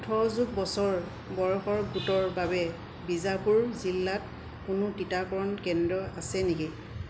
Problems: constant background noise